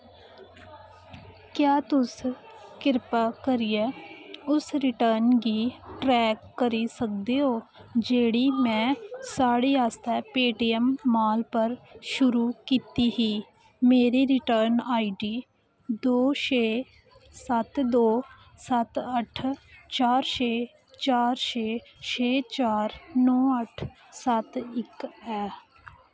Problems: constant background noise